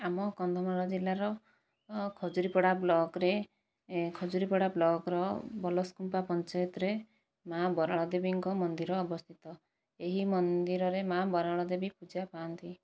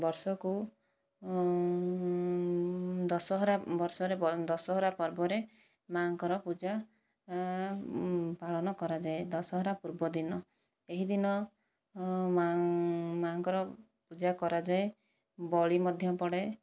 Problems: low volume